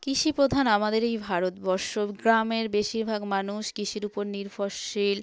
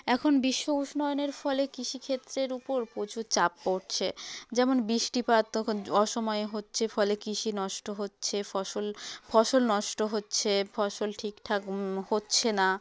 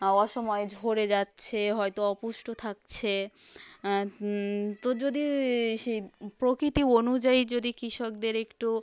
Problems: background conversations at intervals